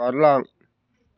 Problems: none marked